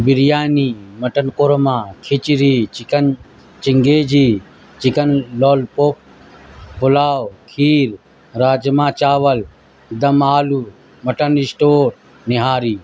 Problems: constant background noise